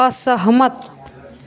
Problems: constant background noise